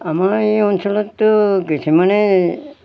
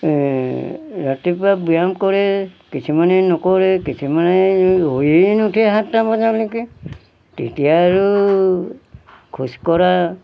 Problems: background sounds at intervals